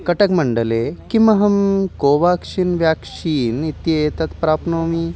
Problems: background sounds at intervals